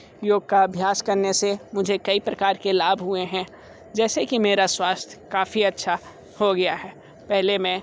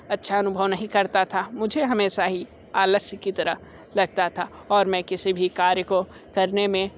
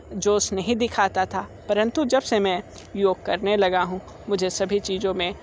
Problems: constant background noise